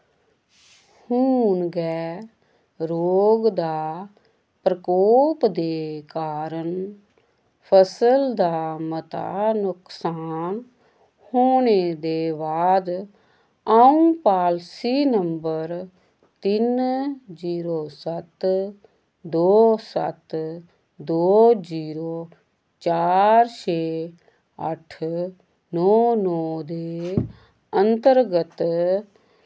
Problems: none marked